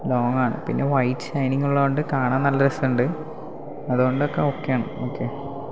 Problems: none marked